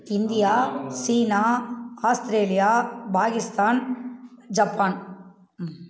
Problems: background conversations at intervals